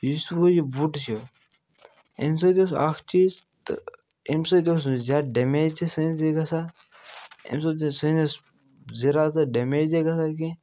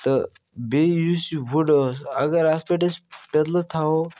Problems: none marked